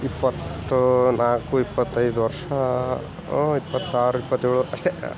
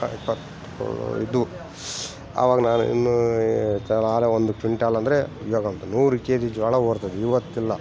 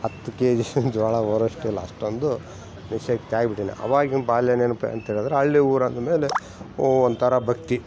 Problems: background sounds at intervals